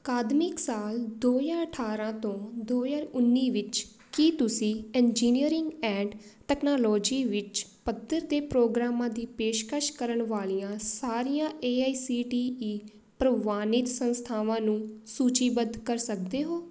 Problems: background sounds at intervals